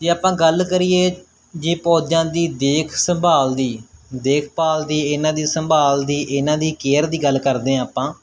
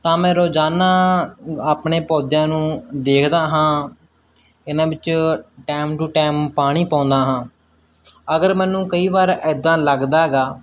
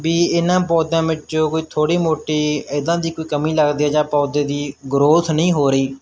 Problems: none marked